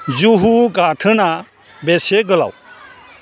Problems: constant background noise